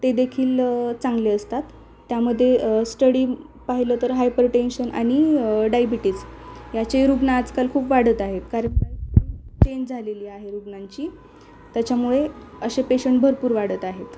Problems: none marked